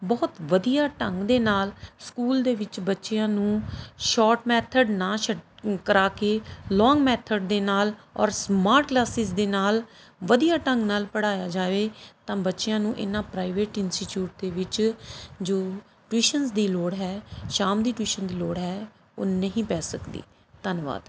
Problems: none marked